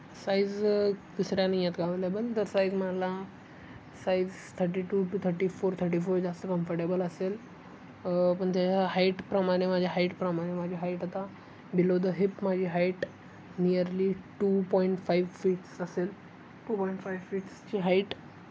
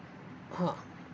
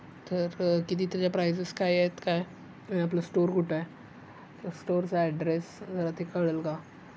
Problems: constant background noise, background conversations at intervals